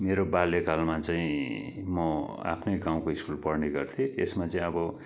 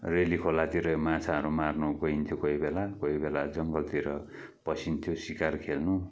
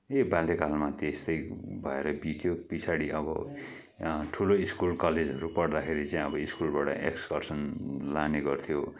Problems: background sounds at intervals